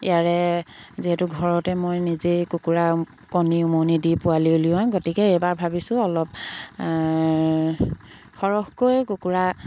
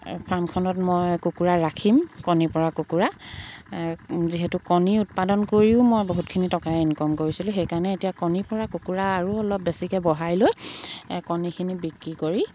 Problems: background sounds at intervals